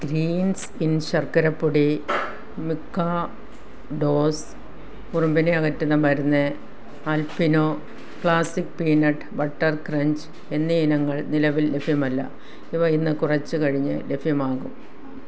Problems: background sounds at intervals